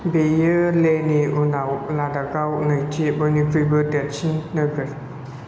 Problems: constant background noise